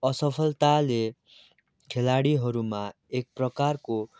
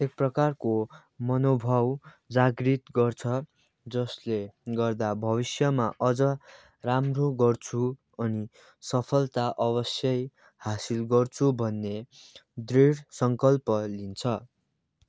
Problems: constant background noise